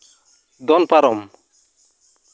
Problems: constant background noise